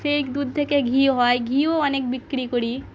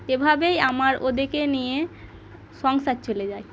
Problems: background sounds at intervals, background conversations at intervals